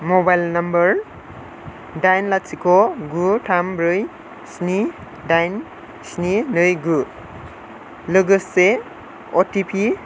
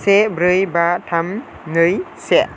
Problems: none marked